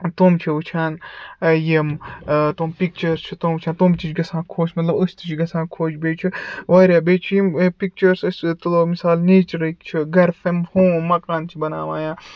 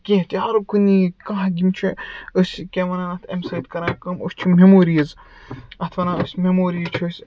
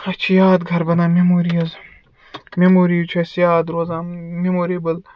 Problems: background sounds at intervals